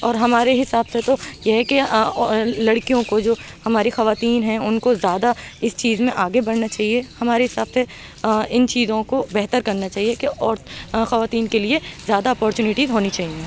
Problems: constant background noise